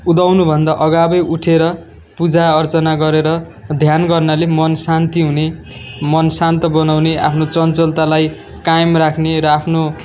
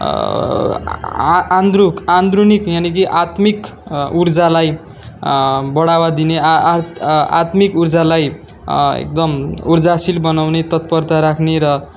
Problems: background sounds at intervals